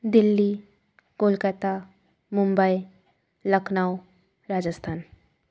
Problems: none marked